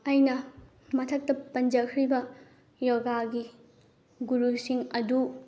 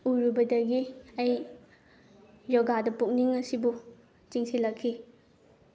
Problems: low volume